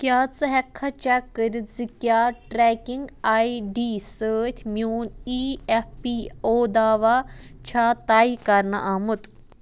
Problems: constant background noise